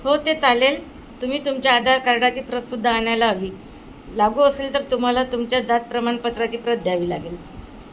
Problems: constant background noise